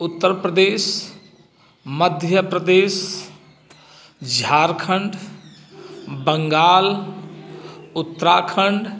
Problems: none marked